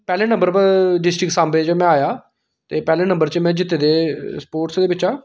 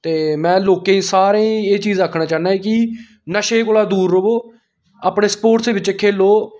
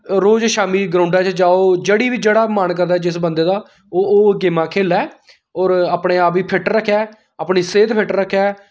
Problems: background sounds at intervals